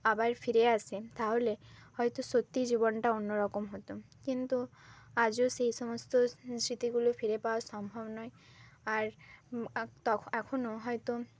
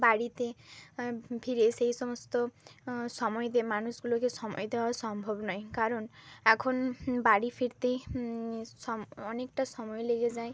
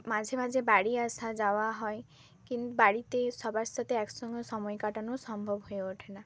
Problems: constant background noise